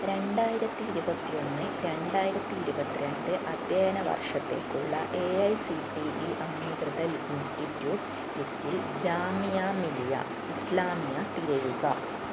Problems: constant background noise